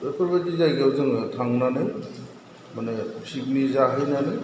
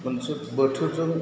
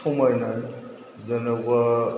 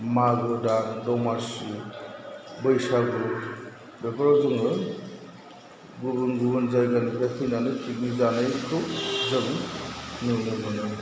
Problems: none marked